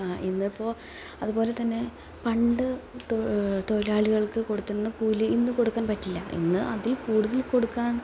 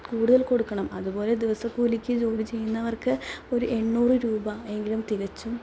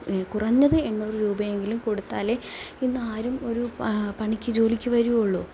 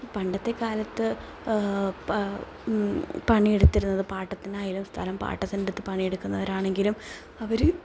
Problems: none marked